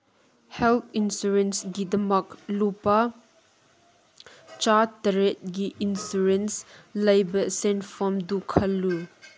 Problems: background sounds at intervals